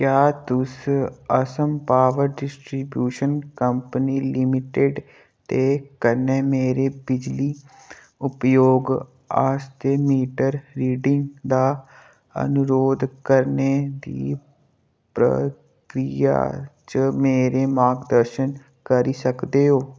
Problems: none marked